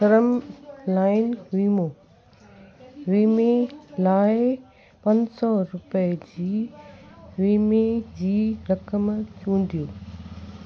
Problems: constant background noise, echo